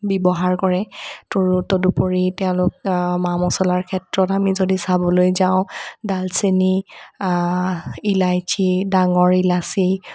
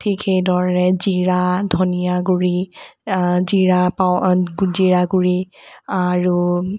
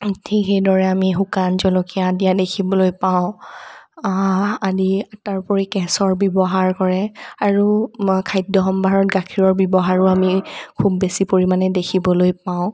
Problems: none marked